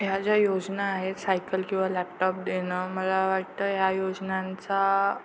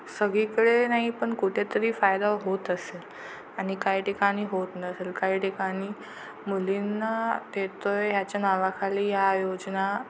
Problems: constant background noise